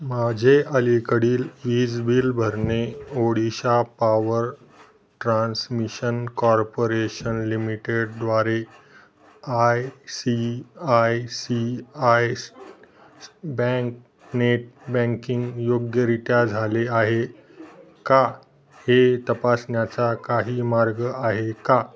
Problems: background sounds at intervals